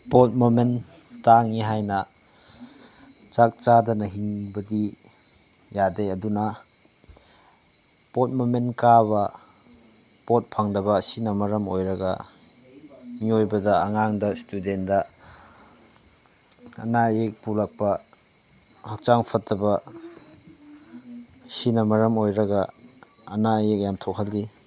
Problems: none marked